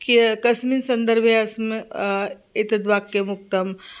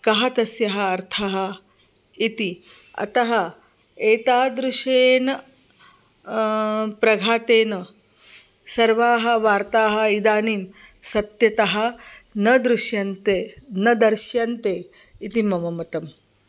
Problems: constant background noise